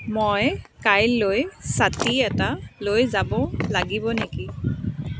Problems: constant background noise